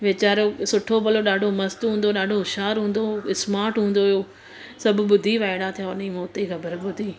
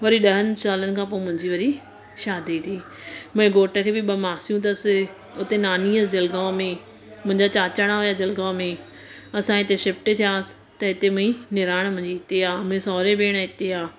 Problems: constant background noise